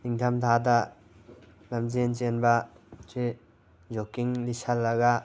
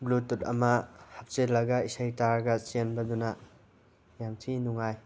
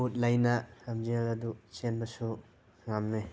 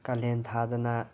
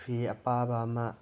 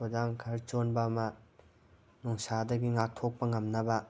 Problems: background sounds at intervals